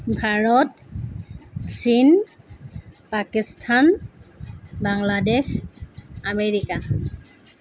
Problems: constant background noise